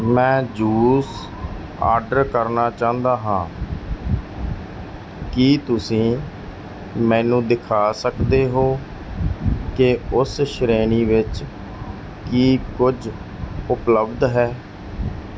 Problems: background sounds at intervals